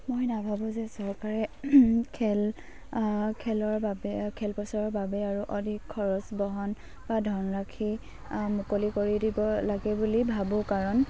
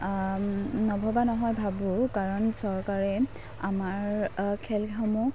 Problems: none marked